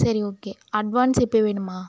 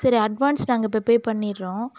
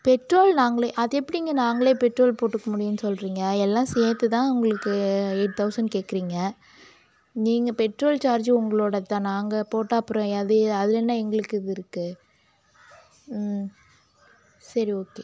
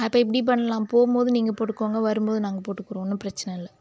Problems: none marked